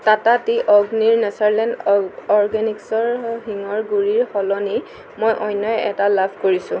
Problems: constant background noise